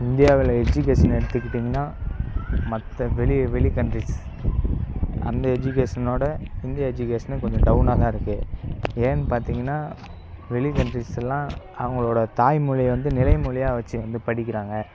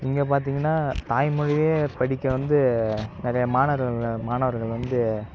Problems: background sounds at intervals